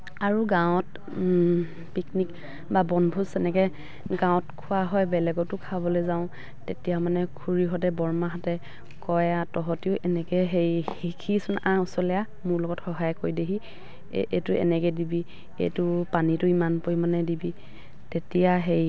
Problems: background sounds at intervals